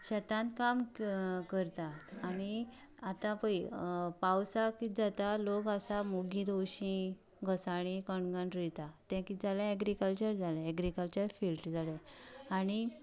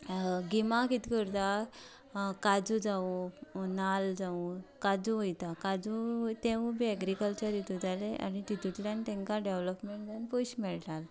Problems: background conversations at intervals